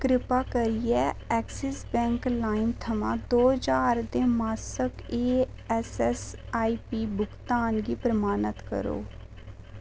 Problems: none marked